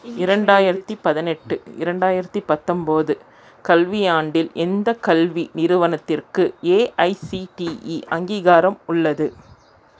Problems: none marked